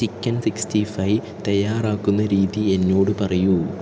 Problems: constant background noise, low volume